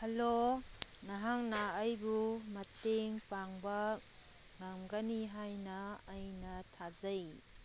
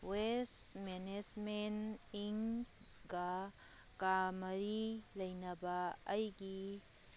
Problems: background sounds at intervals